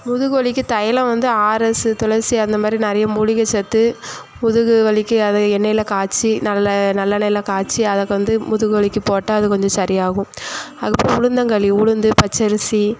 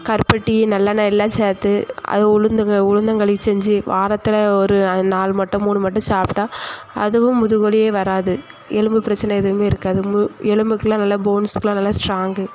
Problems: constant background noise